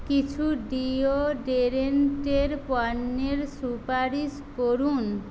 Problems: constant background noise